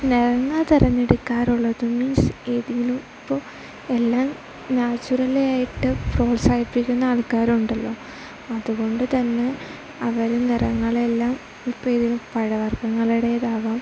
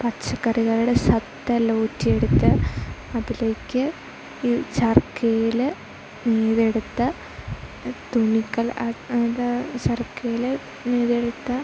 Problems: constant background noise, low volume